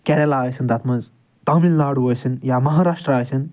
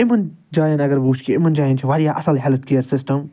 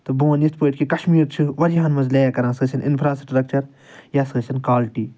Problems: none marked